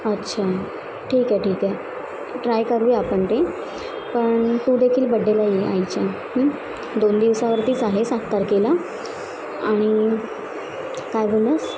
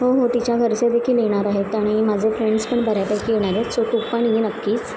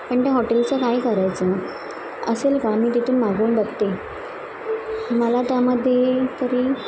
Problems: constant background noise, continuous background conversations